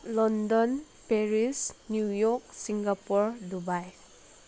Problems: background sounds at intervals